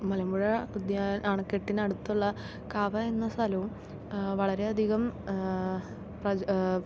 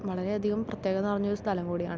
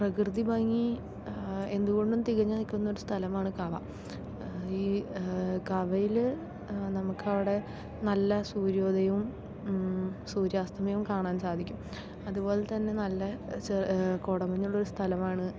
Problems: none marked